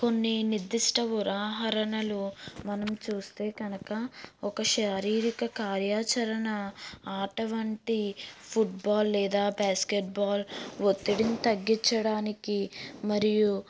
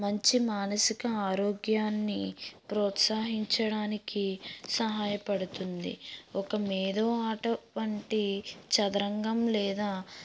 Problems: background sounds at intervals